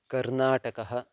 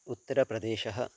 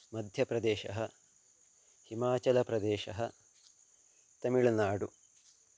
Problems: constant background noise